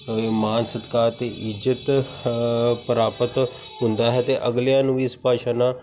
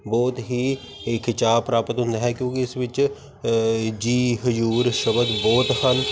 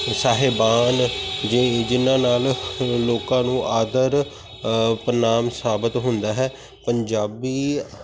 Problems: constant background noise